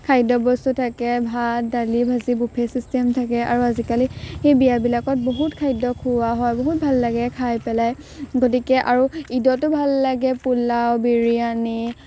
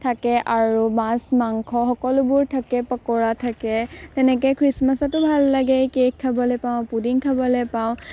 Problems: none marked